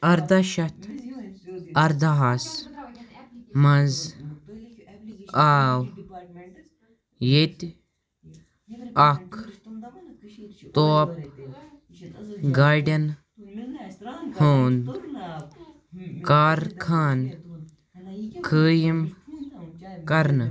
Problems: background sounds at intervals, continuous background conversations